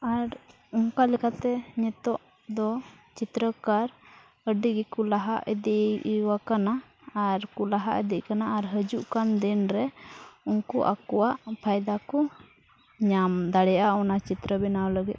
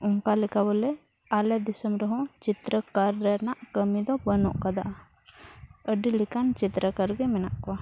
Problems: background sounds at intervals